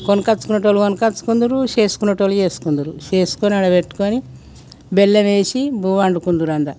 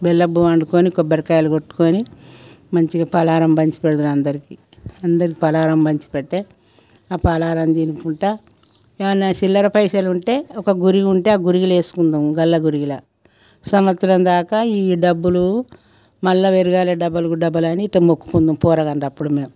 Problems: background sounds at intervals